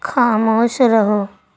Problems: none marked